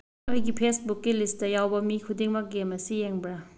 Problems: none marked